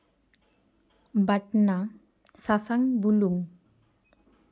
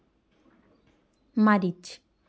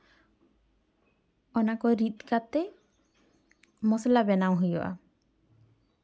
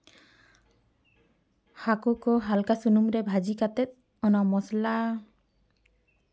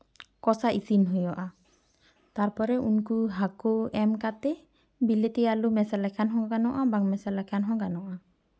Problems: background sounds at intervals